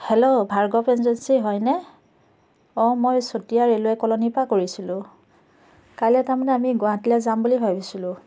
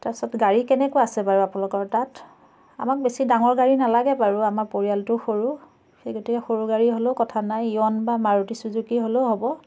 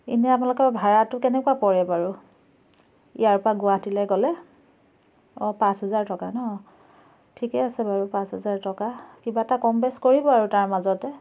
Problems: none marked